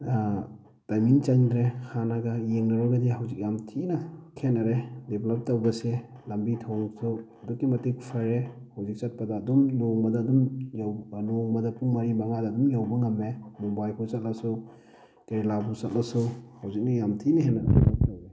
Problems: constant background noise